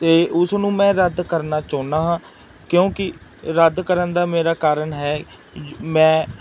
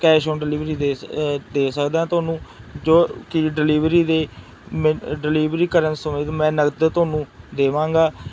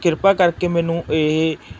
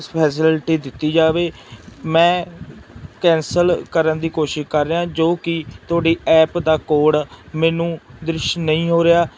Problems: constant background noise